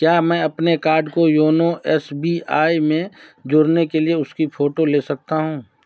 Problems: background sounds at intervals